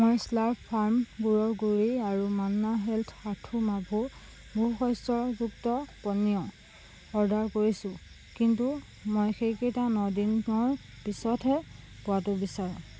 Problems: background sounds at intervals